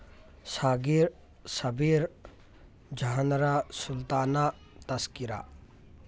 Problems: background conversations at intervals